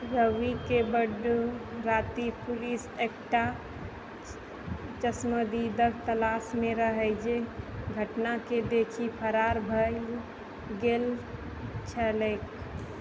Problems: constant background noise